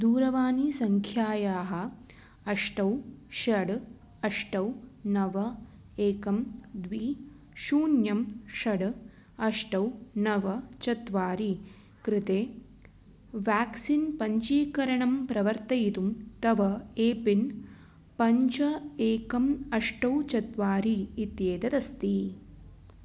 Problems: constant background noise